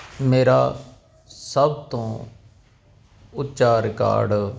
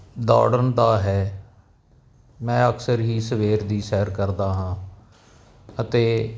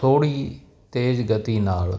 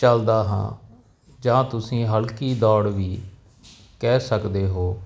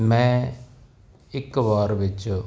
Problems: background sounds at intervals